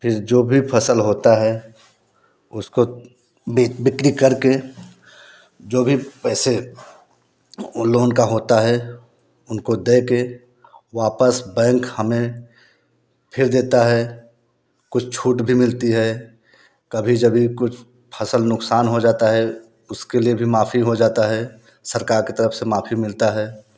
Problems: constant background noise